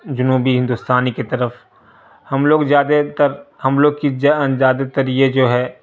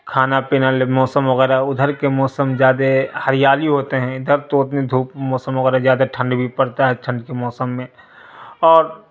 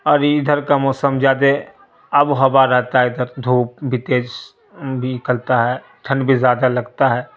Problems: constant background noise